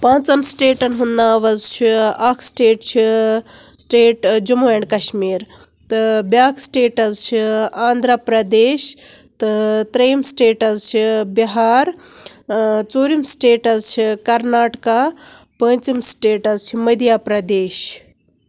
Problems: none marked